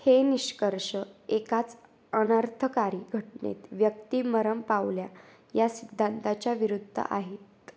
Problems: constant background noise